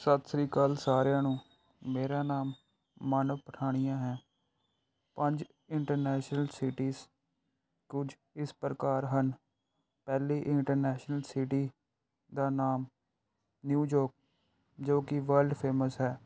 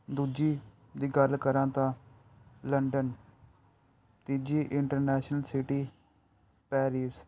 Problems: background sounds at intervals